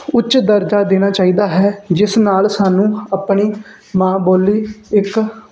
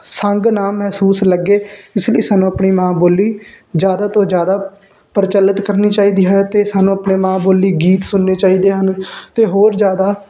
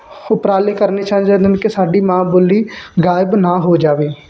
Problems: background sounds at intervals, background conversations at intervals